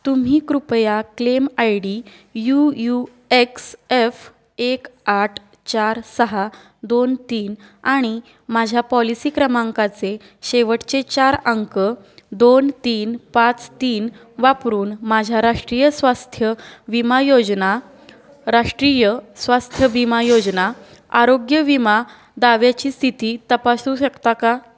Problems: background sounds at intervals